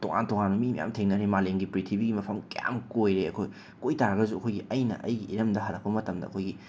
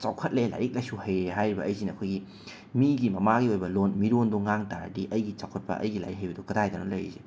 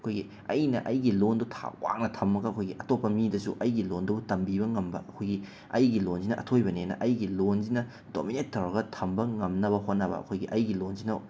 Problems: none marked